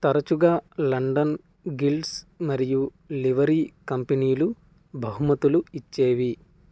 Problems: none marked